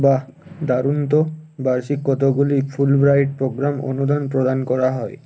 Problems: none marked